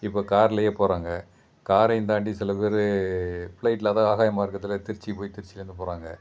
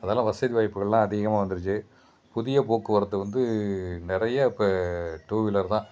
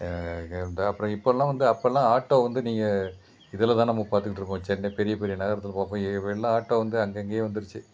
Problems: constant background noise